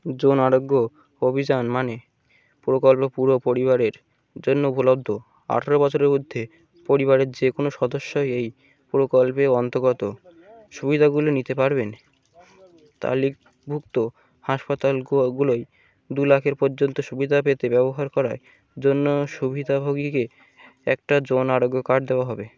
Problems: constant background noise